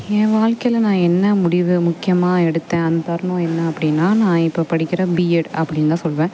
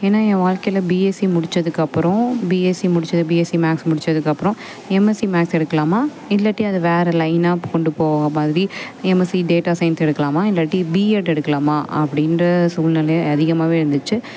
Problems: constant background noise